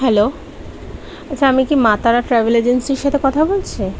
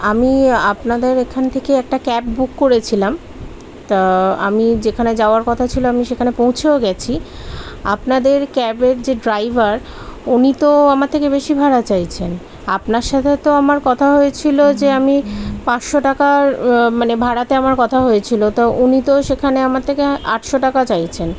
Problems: constant background noise